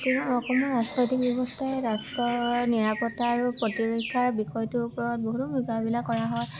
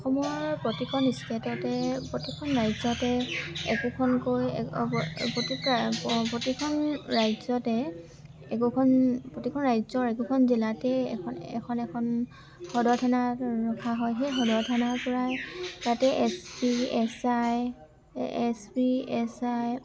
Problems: constant background noise, background conversations at intervals